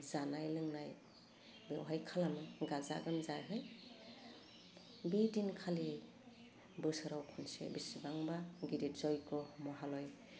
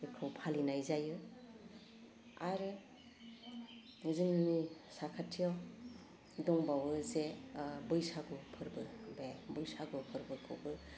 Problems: low volume